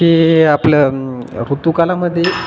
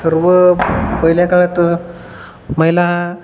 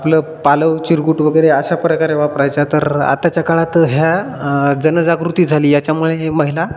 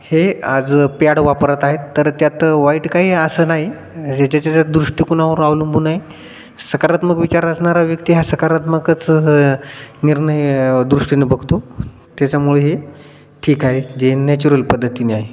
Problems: none marked